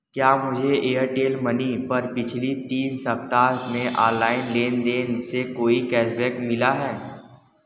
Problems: background sounds at intervals, echo